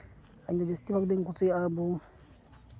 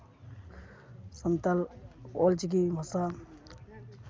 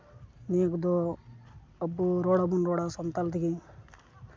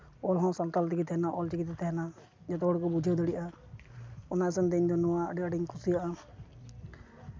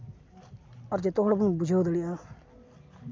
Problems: none marked